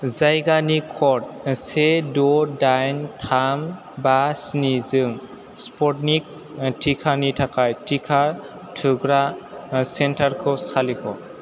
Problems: constant background noise